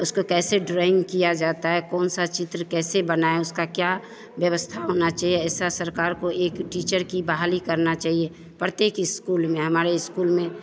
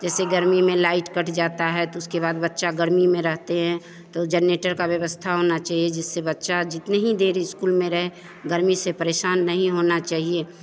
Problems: constant background noise, continuous background conversations